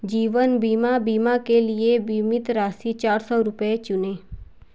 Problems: none marked